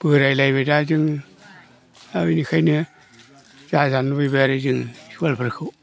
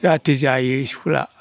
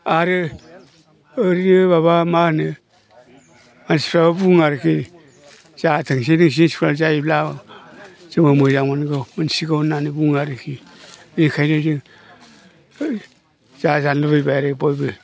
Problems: low volume